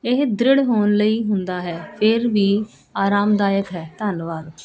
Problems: constant background noise